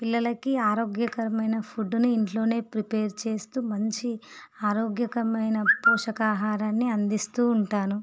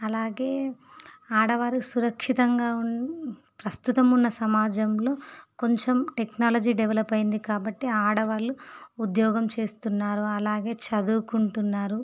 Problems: none marked